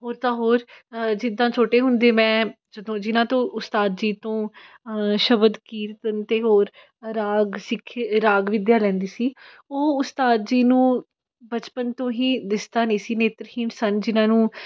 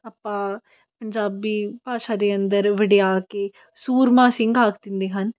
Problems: background sounds at intervals